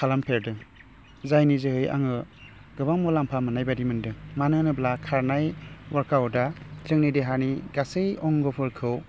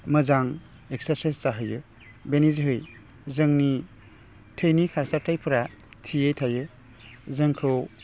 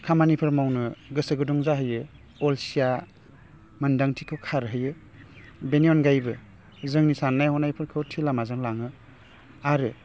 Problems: low volume